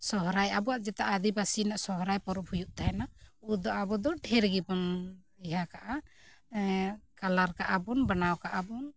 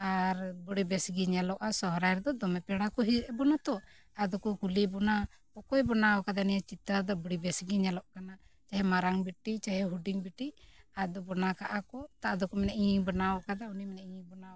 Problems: none marked